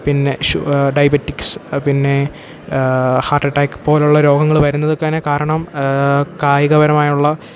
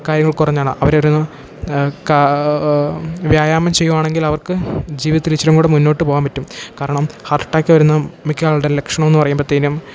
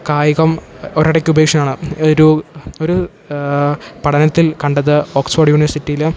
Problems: background sounds at intervals